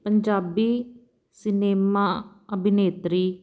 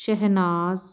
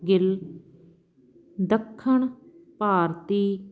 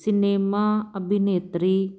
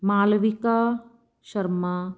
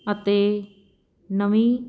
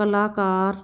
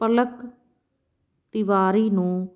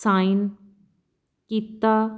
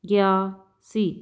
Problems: background sounds at intervals